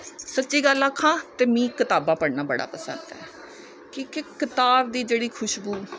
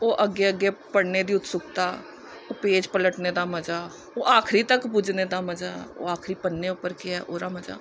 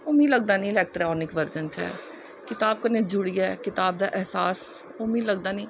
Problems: none marked